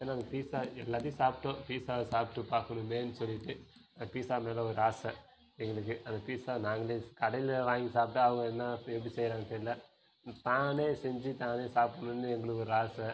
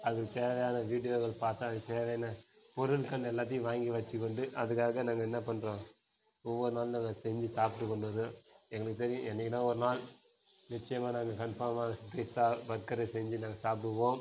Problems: background sounds at intervals